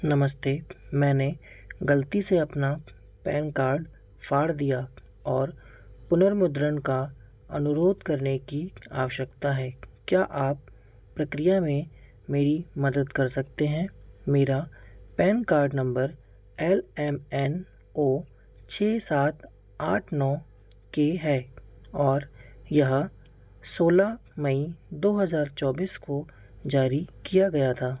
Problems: background sounds at intervals